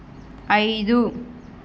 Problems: constant background noise